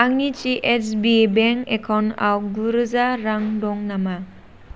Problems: none marked